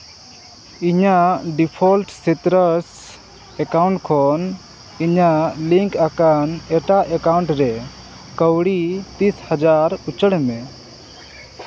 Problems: constant background noise, background conversations at intervals